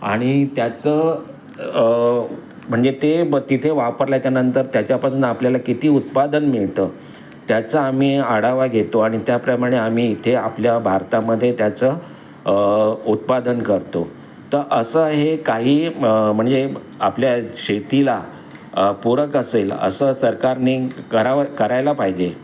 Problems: none marked